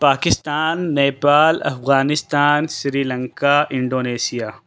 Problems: none marked